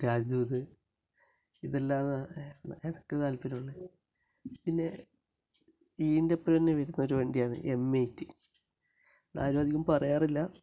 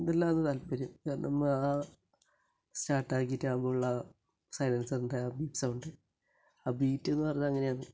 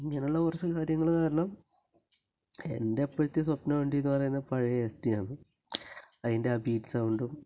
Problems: low volume